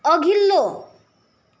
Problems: none marked